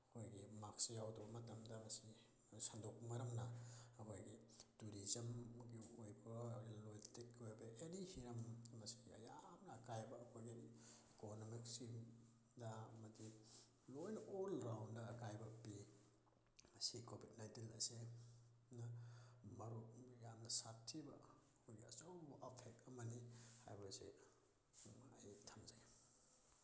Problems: low volume